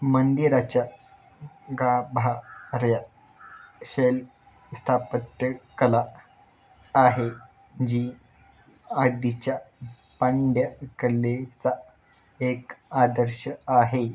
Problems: constant background noise